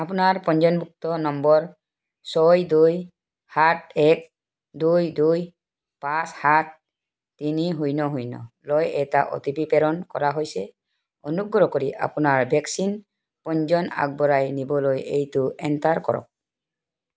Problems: none marked